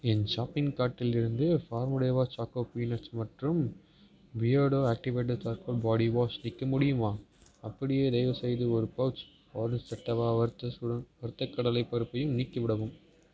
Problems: background sounds at intervals